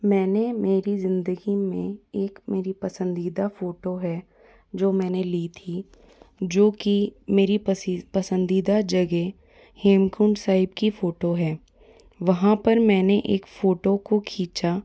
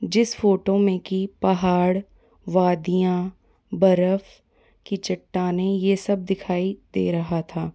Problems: background sounds at intervals